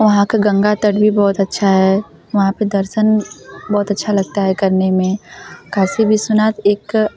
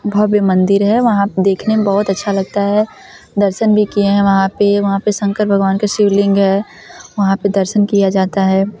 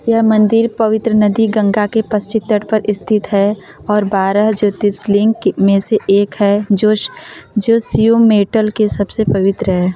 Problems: continuous background conversations